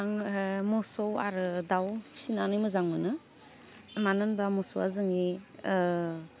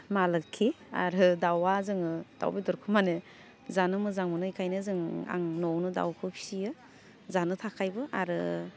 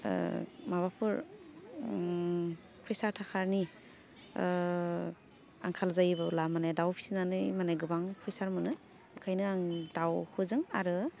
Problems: none marked